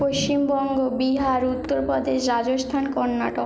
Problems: none marked